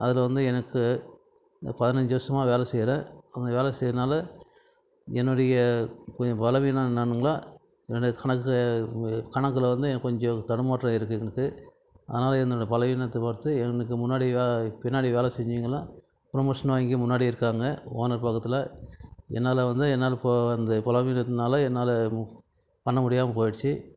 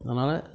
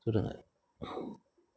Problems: none marked